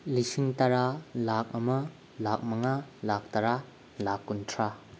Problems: constant background noise